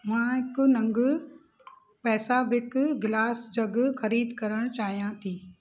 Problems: constant background noise